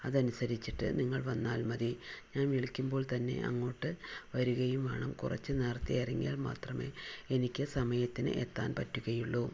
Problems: low volume